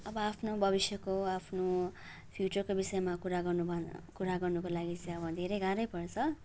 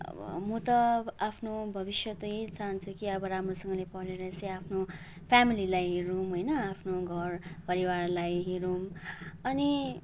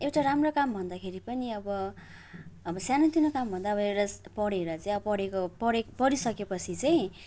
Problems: none marked